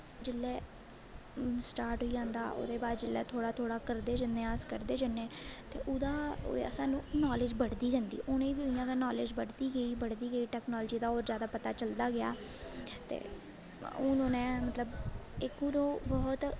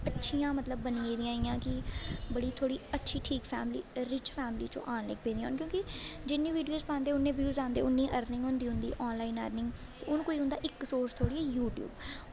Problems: constant background noise